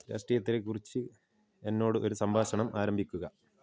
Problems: low volume